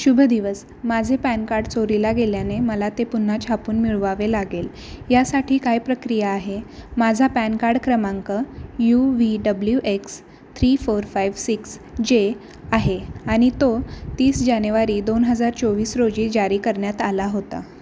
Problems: none marked